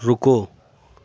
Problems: background sounds at intervals, background conversations at intervals